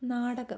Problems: low volume